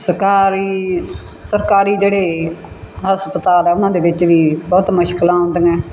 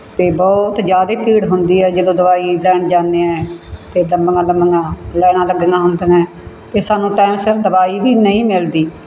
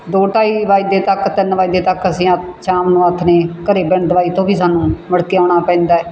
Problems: background sounds at intervals